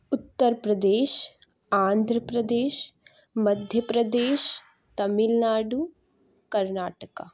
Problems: none marked